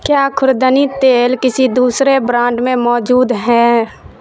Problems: constant background noise